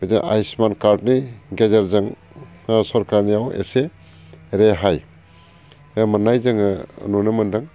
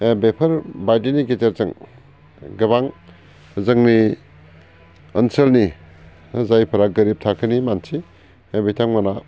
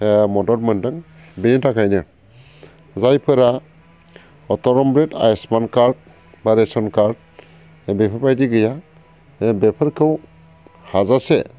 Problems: none marked